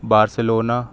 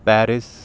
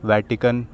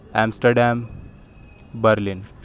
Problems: constant background noise